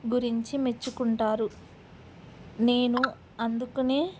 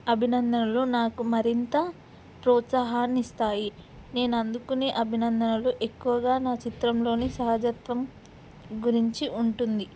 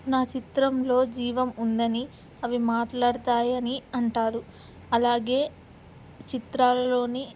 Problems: background sounds at intervals